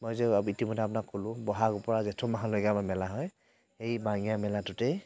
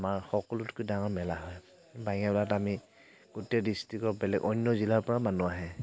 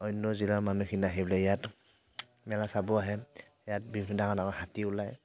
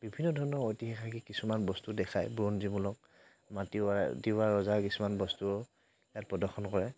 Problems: none marked